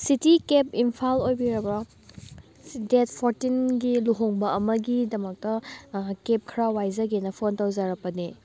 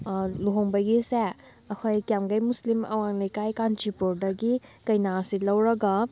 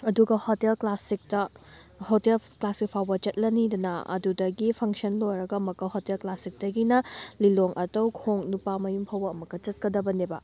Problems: none marked